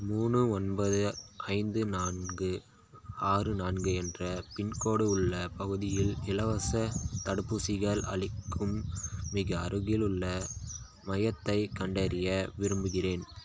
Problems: constant background noise